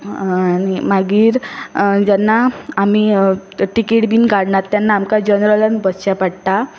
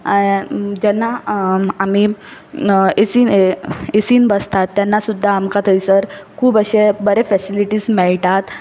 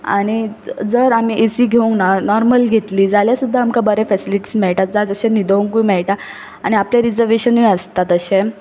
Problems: none marked